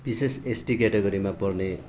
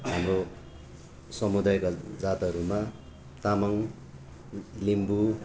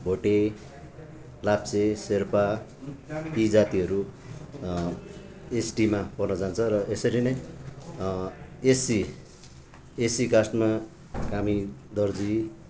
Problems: continuous background conversations